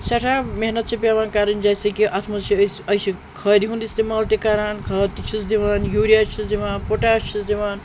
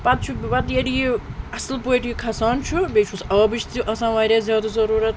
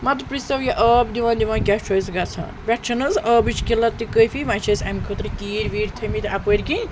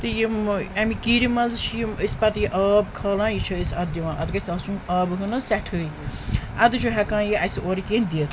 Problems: constant background noise